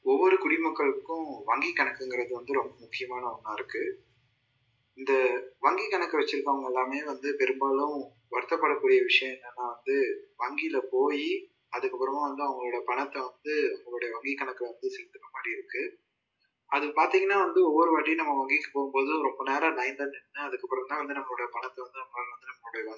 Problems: low volume